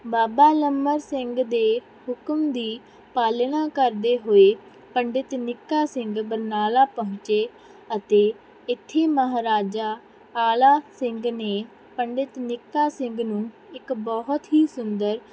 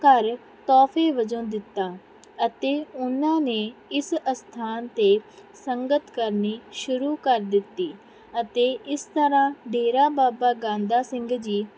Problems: background sounds at intervals